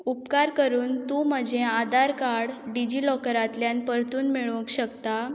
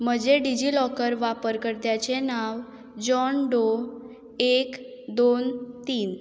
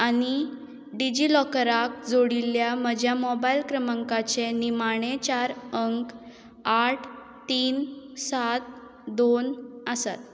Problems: none marked